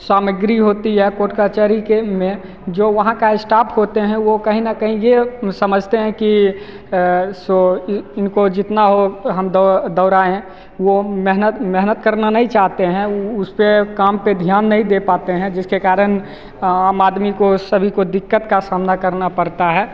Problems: none marked